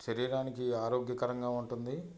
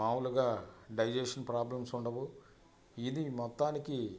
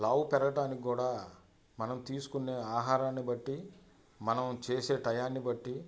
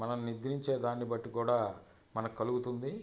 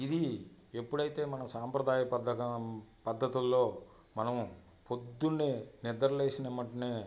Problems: constant background noise, background conversations at intervals